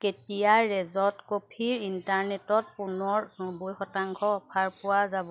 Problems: constant background noise